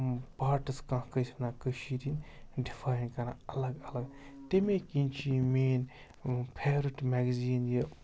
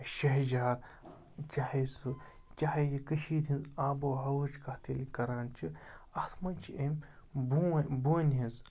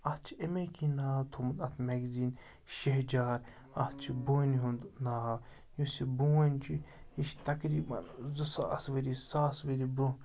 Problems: background sounds at intervals, background conversations at intervals